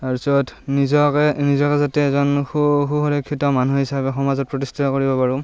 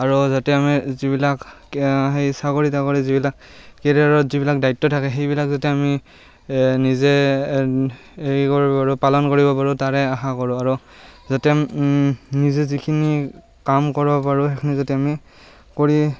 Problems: background sounds at intervals